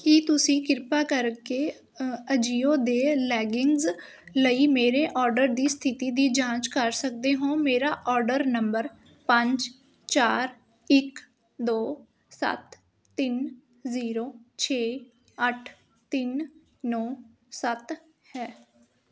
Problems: constant background noise